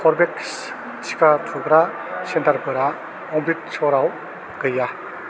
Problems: none marked